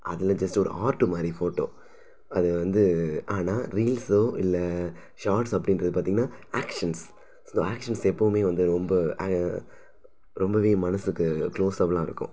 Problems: none marked